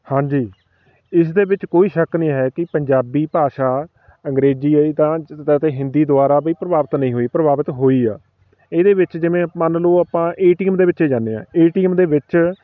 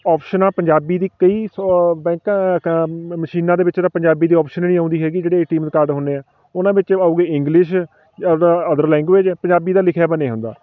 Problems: constant background noise, background conversations at intervals